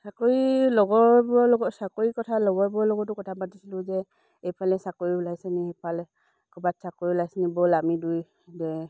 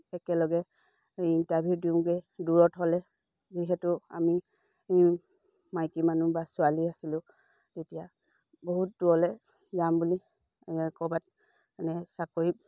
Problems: low volume